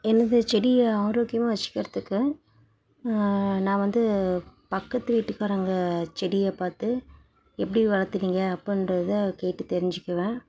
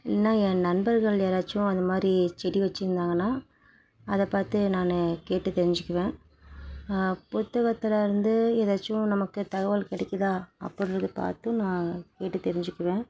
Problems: background sounds at intervals, background conversations at intervals